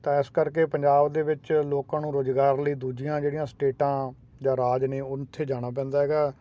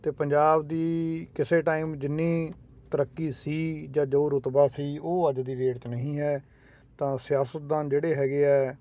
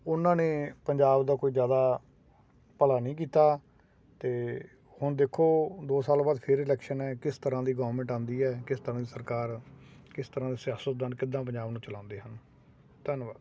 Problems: constant background noise